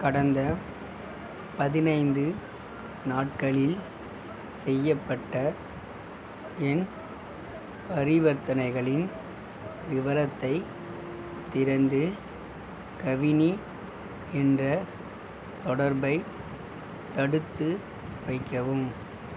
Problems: constant background noise, background conversations at intervals